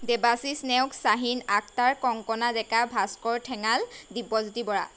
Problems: none marked